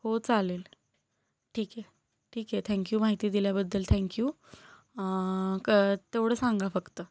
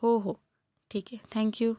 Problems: none marked